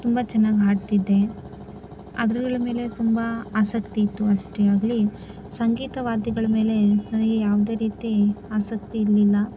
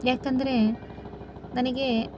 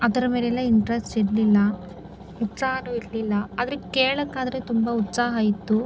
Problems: constant background noise